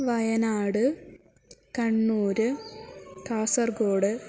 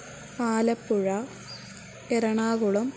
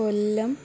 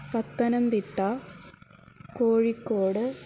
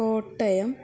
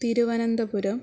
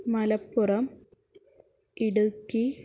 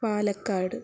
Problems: constant background noise